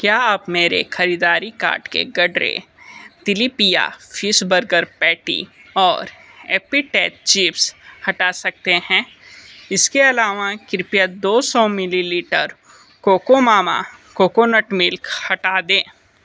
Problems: none marked